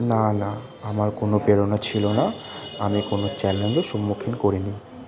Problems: constant background noise